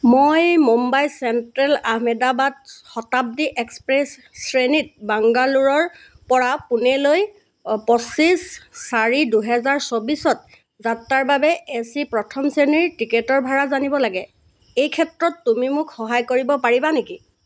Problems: constant background noise